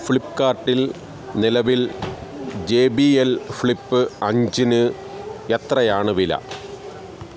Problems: constant background noise